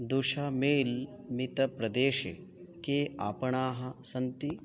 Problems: none marked